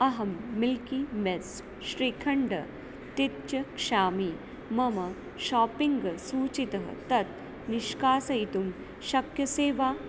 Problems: constant background noise